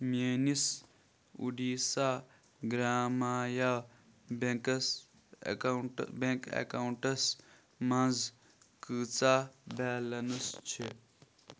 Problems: background sounds at intervals